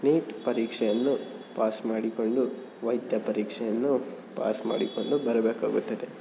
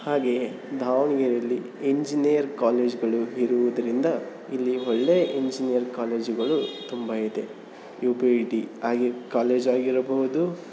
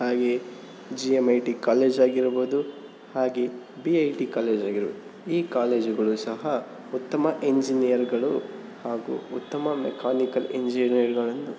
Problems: constant background noise